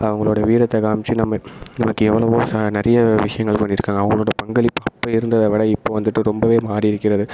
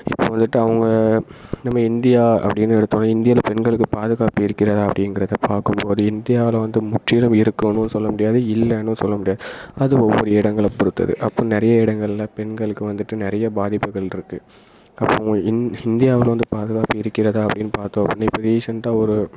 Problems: echo